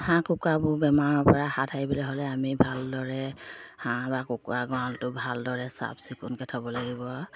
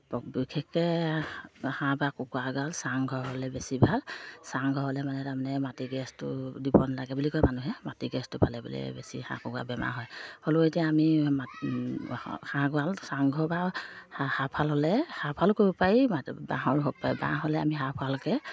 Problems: low volume